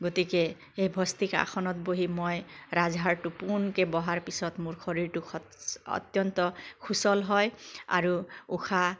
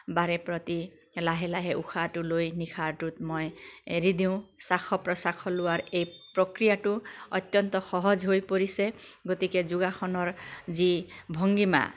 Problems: constant background noise